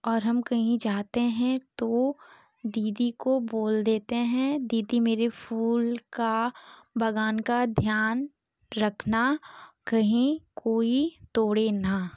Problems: constant background noise